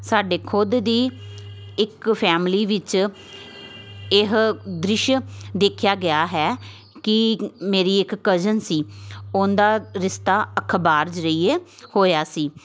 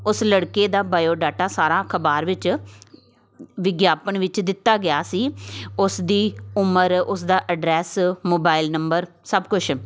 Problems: constant background noise, continuous background conversations